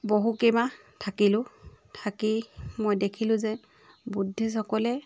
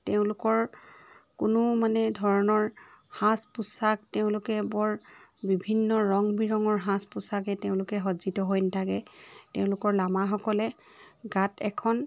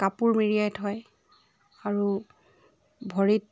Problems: background sounds at intervals, continuous background conversations